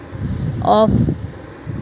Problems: constant background noise